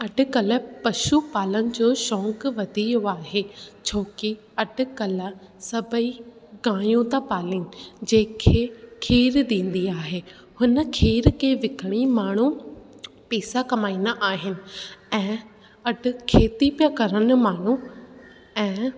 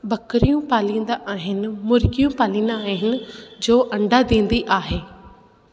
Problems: constant background noise